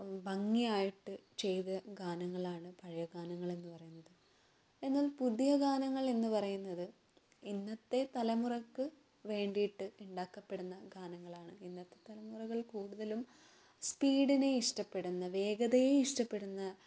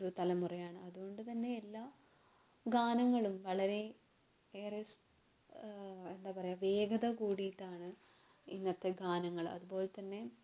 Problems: low volume